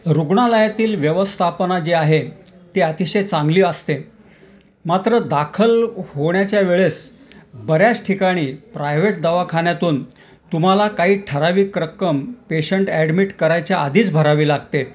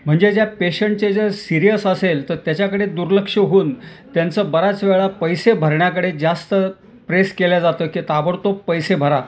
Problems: none marked